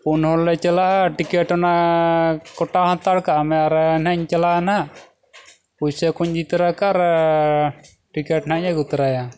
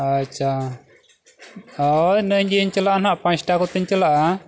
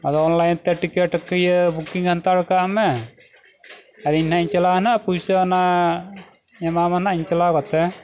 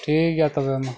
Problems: background sounds at intervals